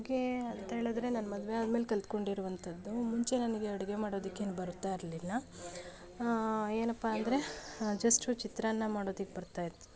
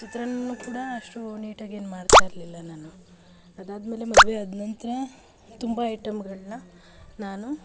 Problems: background sounds at intervals